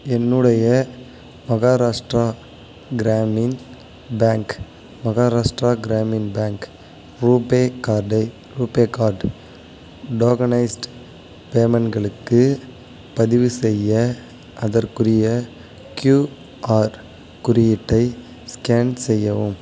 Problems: constant background noise